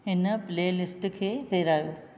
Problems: none marked